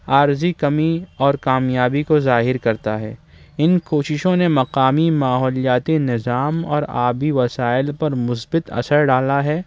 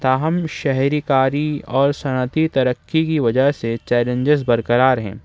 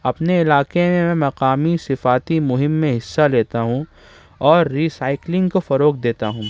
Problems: background sounds at intervals